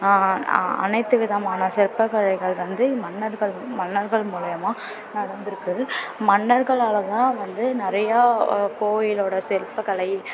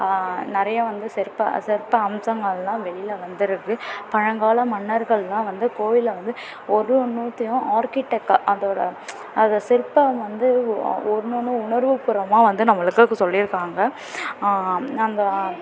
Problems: constant background noise